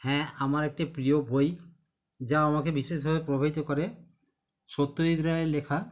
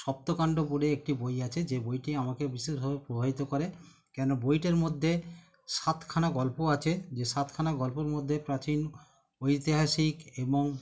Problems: none marked